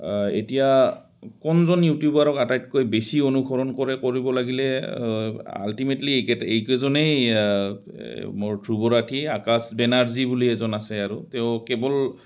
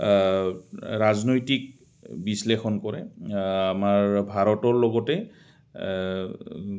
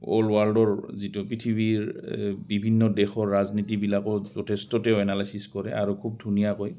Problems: constant background noise